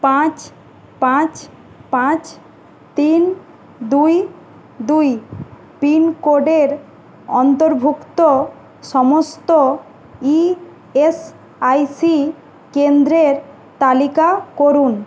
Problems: none marked